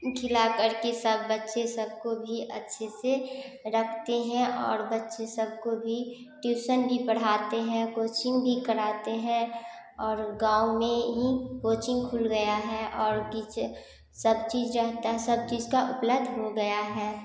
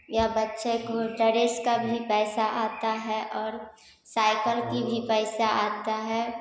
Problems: none marked